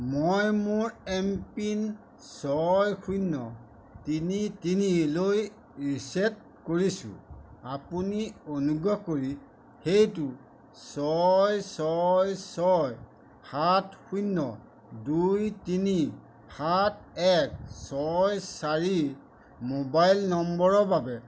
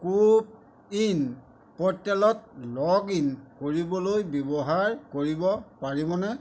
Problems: none marked